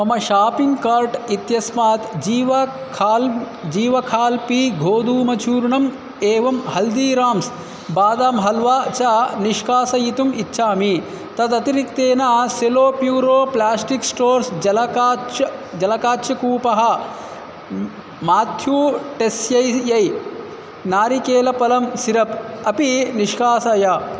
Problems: constant background noise